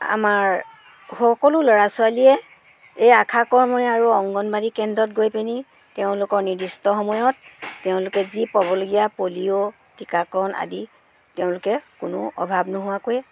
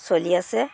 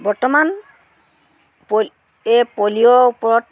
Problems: constant background noise